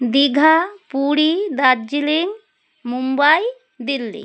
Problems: background sounds at intervals